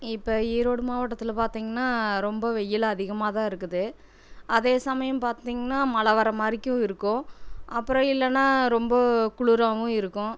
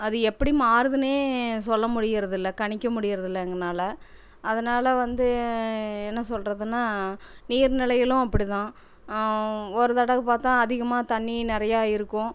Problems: none marked